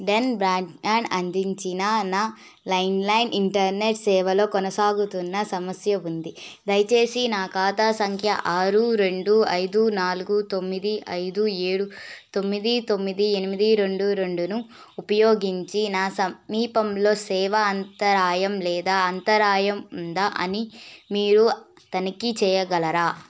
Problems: none marked